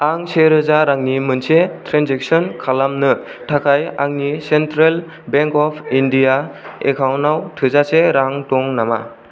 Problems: none marked